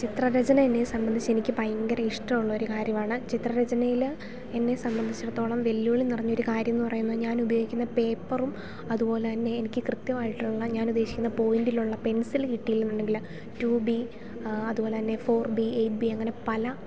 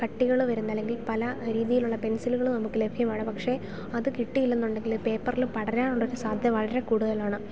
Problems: background sounds at intervals